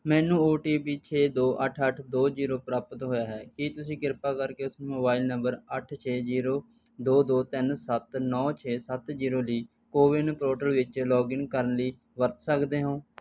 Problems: background sounds at intervals